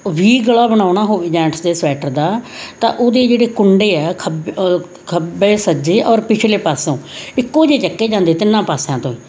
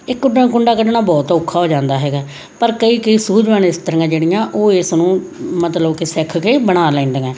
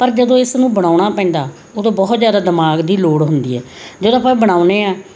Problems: none marked